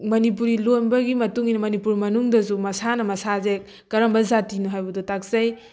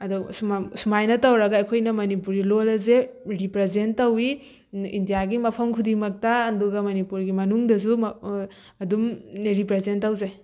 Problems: background sounds at intervals